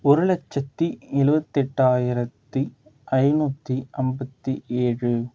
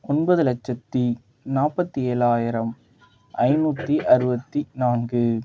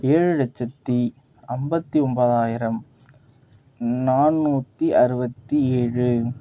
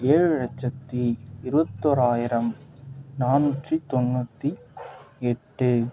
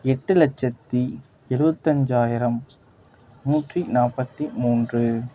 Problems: none marked